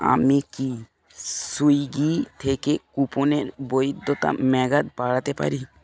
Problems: background sounds at intervals